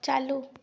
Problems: constant background noise